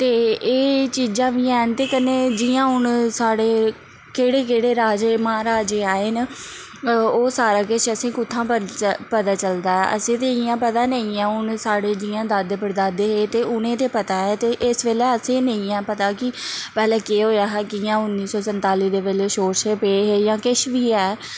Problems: none marked